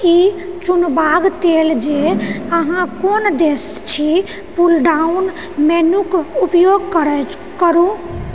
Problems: background sounds at intervals, low volume